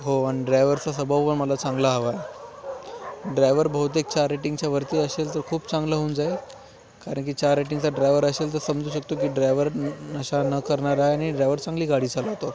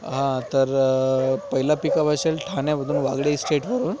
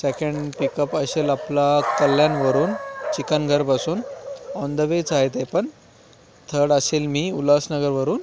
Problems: constant background noise